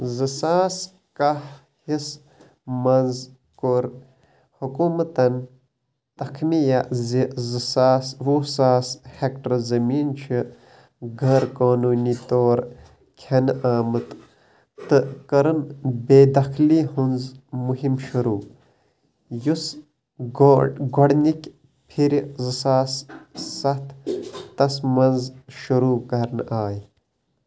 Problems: constant background noise